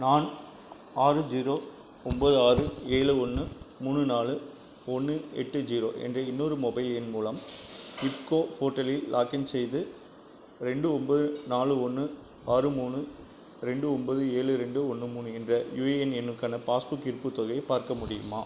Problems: constant background noise